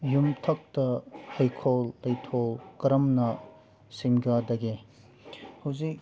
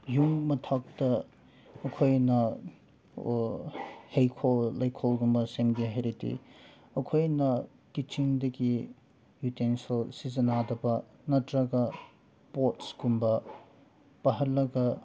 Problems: background sounds at intervals